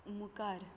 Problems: low volume